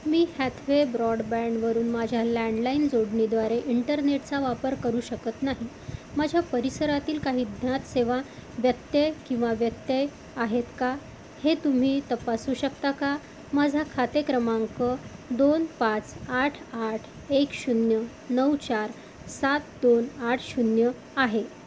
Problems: constant background noise